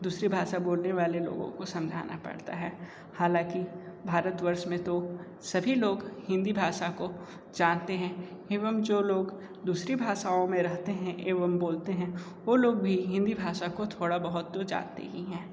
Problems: none marked